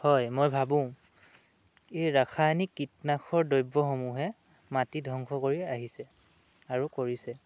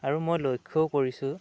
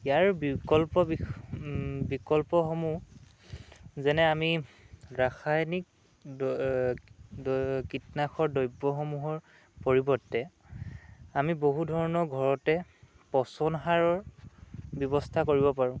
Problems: none marked